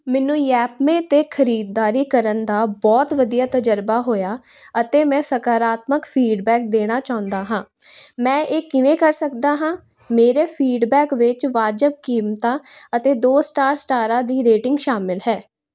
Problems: none marked